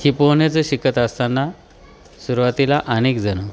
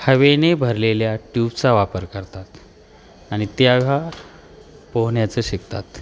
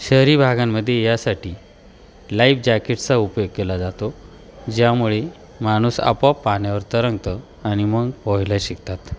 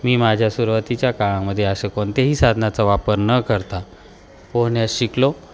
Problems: constant background noise, continuous background conversations